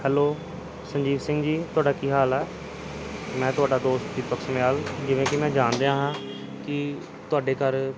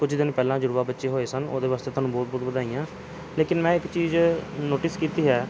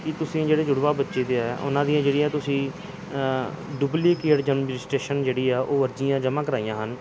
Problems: none marked